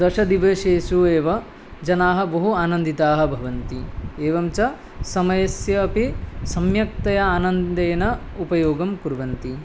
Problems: none marked